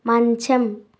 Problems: constant background noise